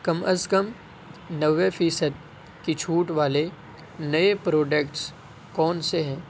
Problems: constant background noise